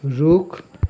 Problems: none marked